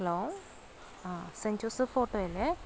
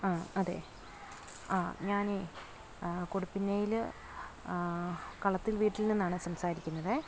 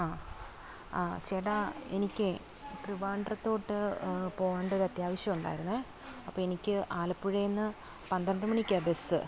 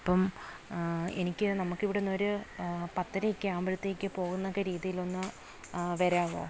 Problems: background sounds at intervals